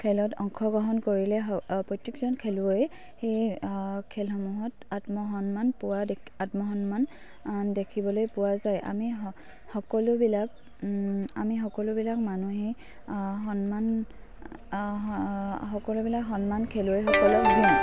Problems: low volume